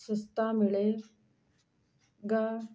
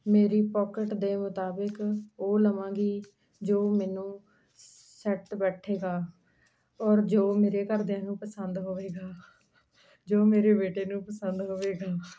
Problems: background sounds at intervals